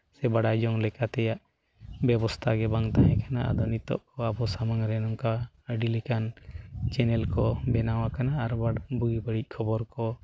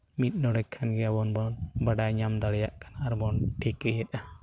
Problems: none marked